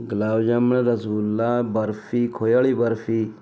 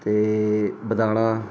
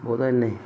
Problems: constant background noise